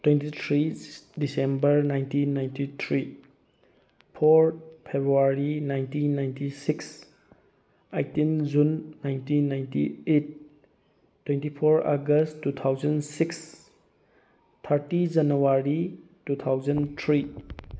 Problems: background sounds at intervals